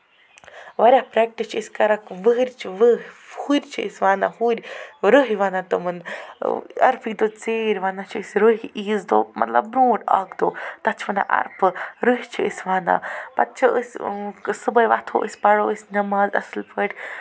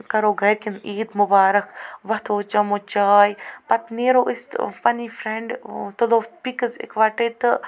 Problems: constant background noise, background conversations at intervals